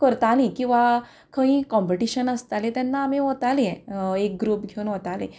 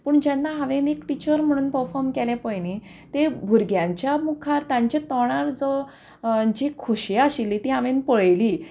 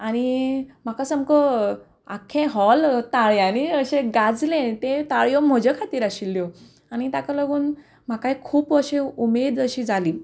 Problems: none marked